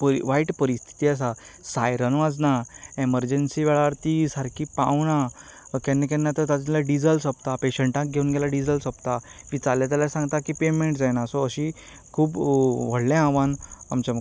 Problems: none marked